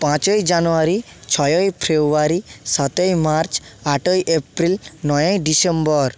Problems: background sounds at intervals